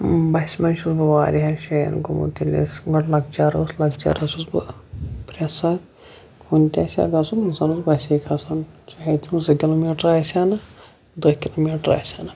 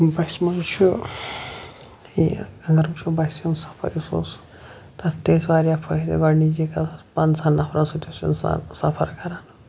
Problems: none marked